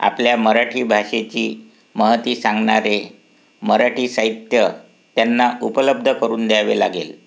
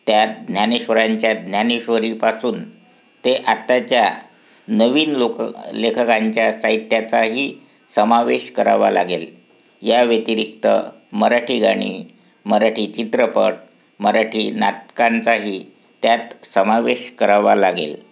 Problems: constant background noise